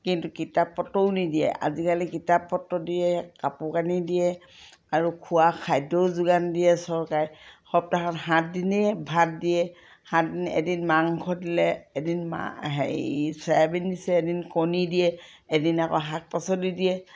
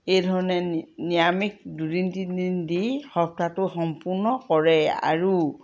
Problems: none marked